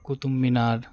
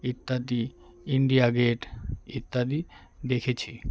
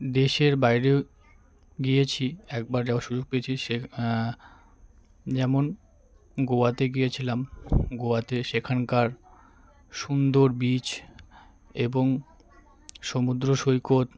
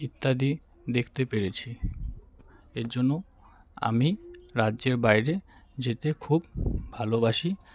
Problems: constant background noise, background conversations at intervals